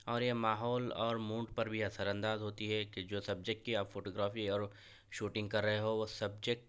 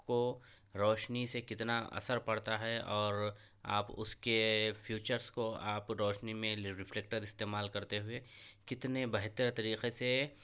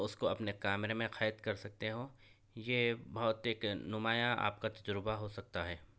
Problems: none marked